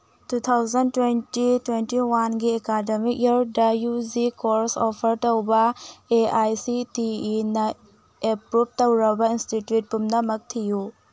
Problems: background sounds at intervals